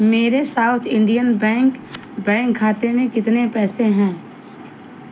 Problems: none marked